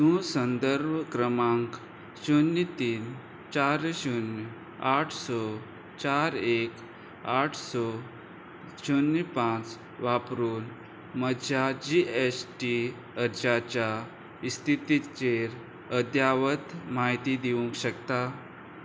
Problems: none marked